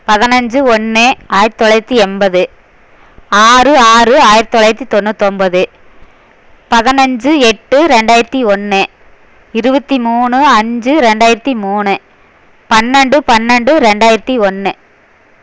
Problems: none marked